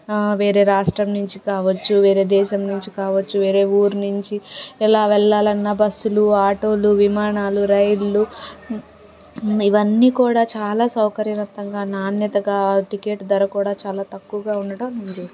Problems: background conversations at intervals